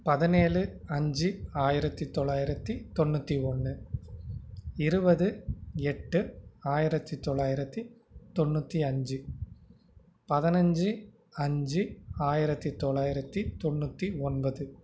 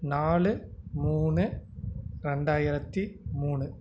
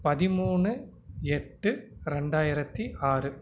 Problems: none marked